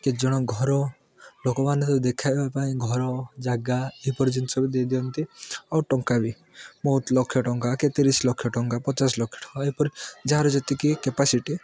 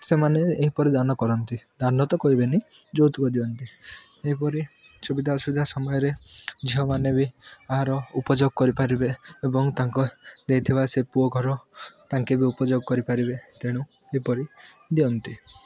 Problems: none marked